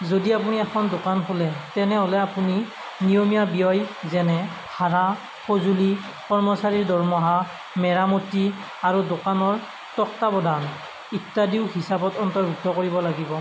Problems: none marked